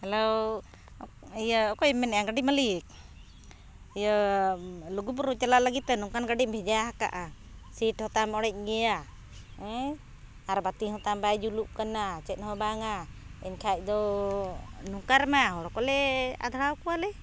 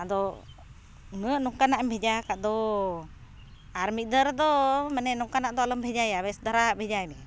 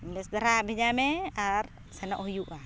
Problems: none marked